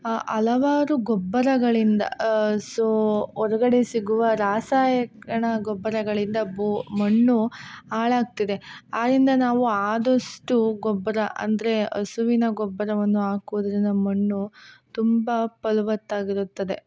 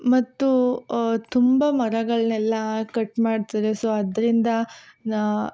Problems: none marked